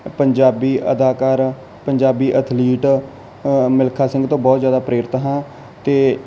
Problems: constant background noise